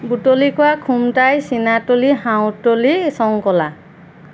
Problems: constant background noise